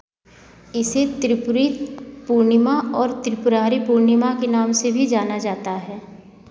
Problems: constant background noise